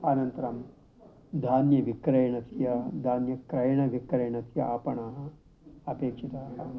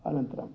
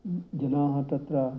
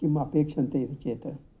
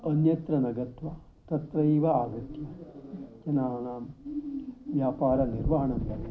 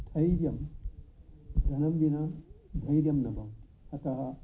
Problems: none marked